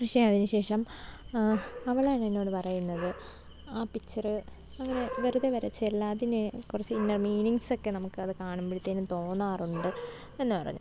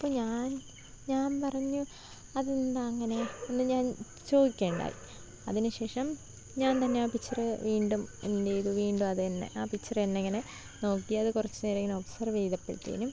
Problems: low volume